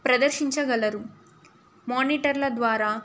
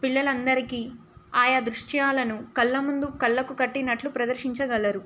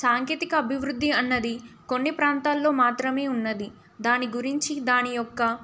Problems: none marked